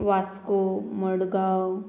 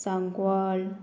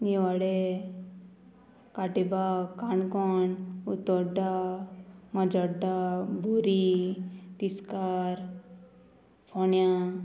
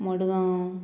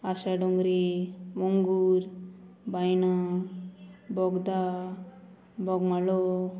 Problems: constant background noise